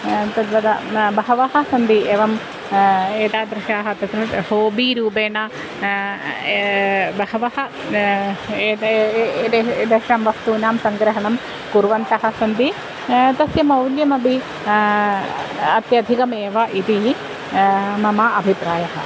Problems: constant background noise